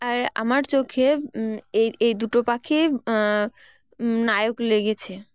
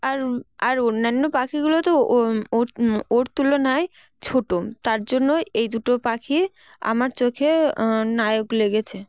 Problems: background sounds at intervals, background conversations at intervals